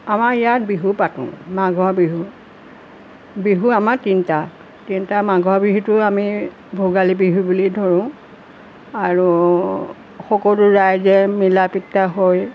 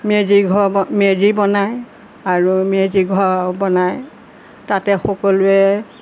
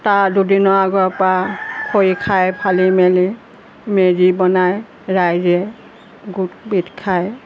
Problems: none marked